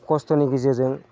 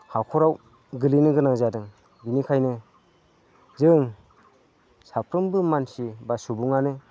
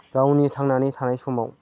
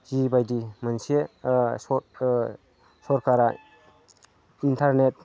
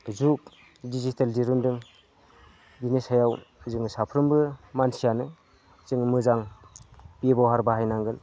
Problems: constant background noise